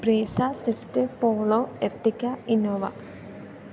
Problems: background sounds at intervals